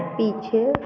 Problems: constant background noise, low volume